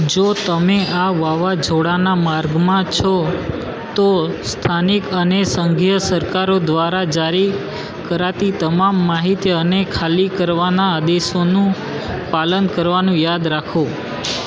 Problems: constant background noise